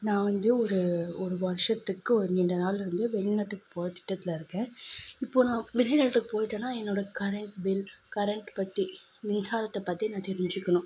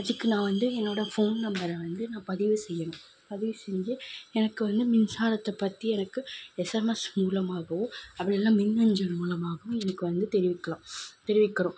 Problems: constant background noise